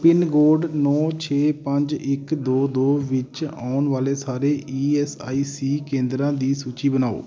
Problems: constant background noise